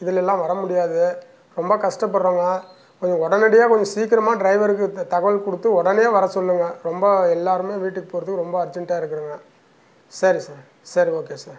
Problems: none marked